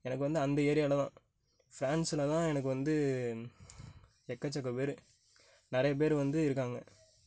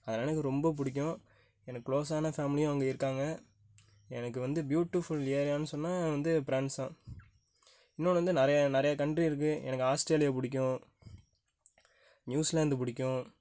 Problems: none marked